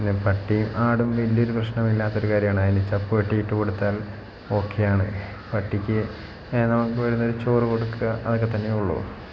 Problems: constant background noise